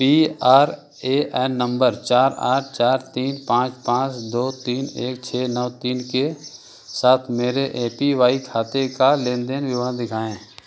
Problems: none marked